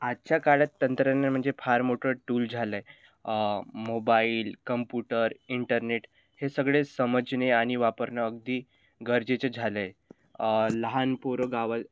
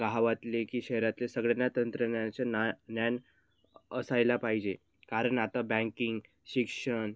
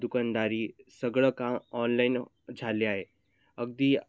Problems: none marked